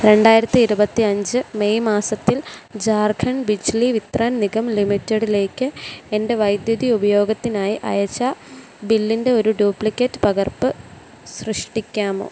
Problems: constant background noise